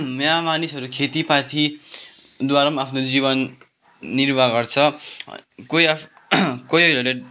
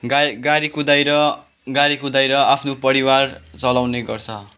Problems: background sounds at intervals, background conversations at intervals